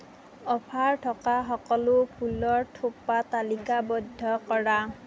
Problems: none marked